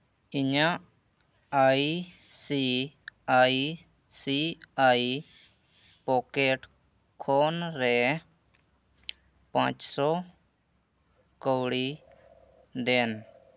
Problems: none marked